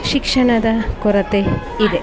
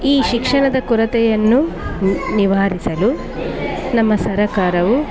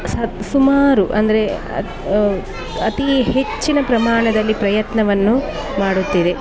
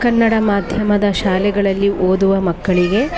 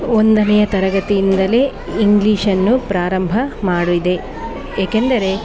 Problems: background sounds at intervals